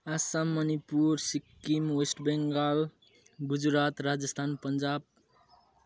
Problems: background sounds at intervals